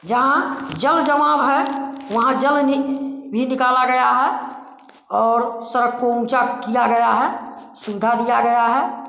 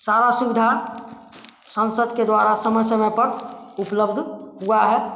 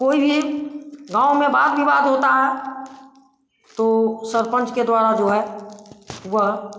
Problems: constant background noise